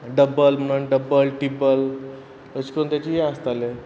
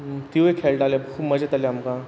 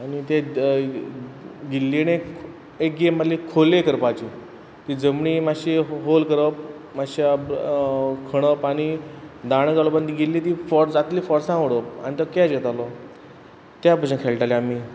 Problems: constant background noise